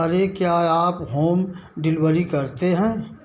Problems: background sounds at intervals, background conversations at intervals, echo